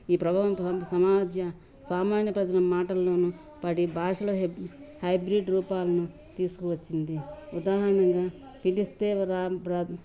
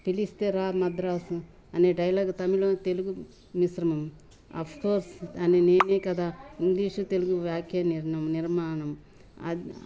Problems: none marked